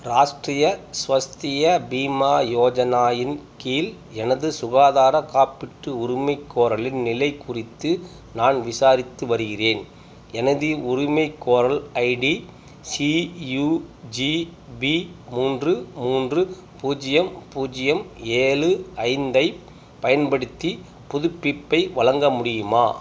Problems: background sounds at intervals